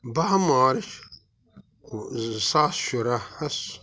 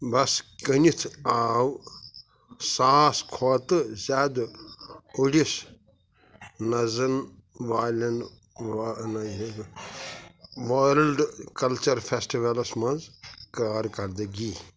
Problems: background sounds at intervals